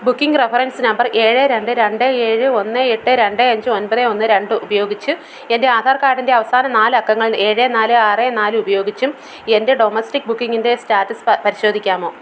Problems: none marked